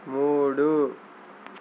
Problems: none marked